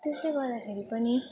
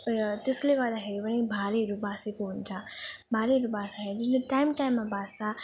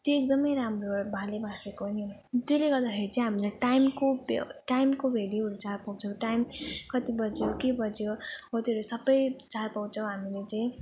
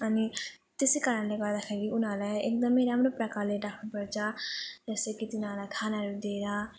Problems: constant background noise